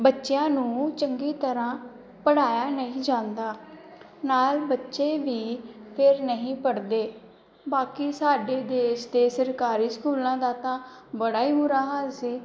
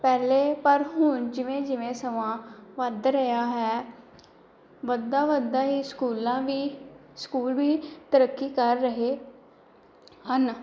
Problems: none marked